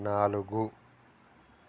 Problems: constant background noise